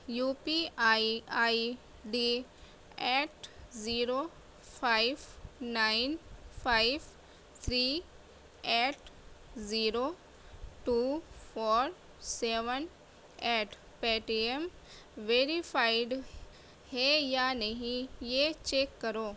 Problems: low volume